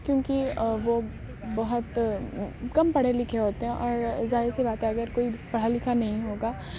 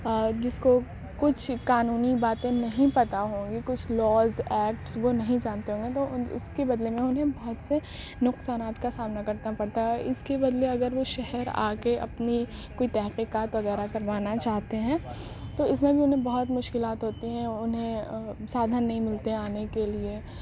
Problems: constant background noise, low volume